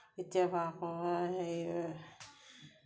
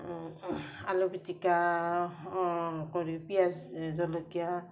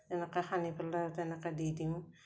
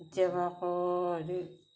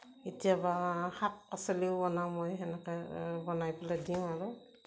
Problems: none marked